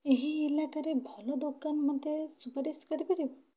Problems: low volume